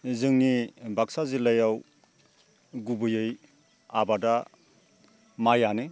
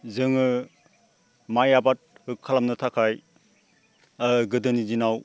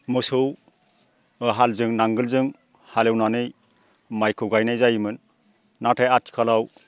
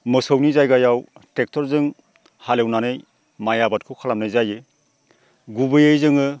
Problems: constant background noise